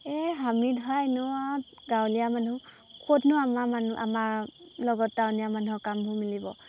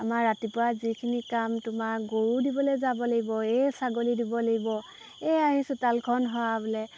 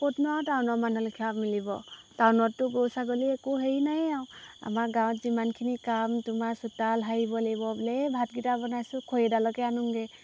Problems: background sounds at intervals